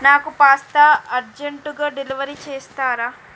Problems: constant background noise